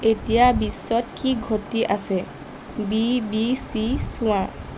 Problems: constant background noise